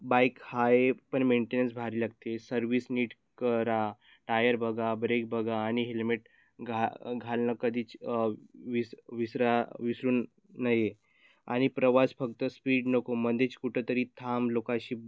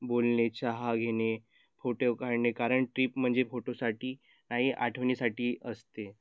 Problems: none marked